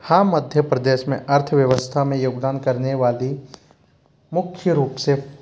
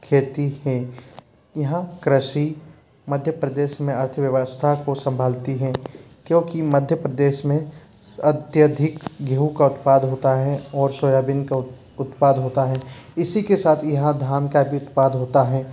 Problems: constant background noise